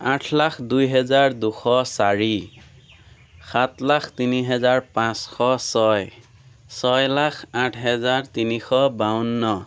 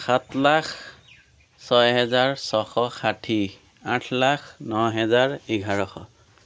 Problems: constant background noise